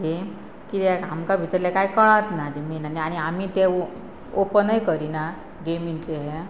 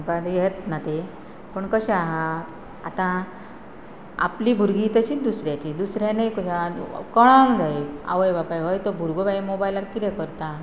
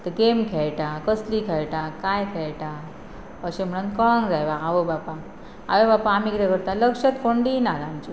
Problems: constant background noise